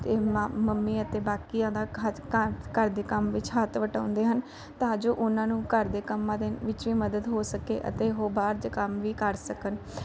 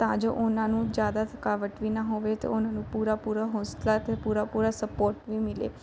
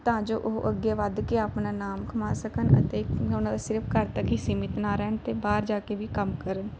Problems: none marked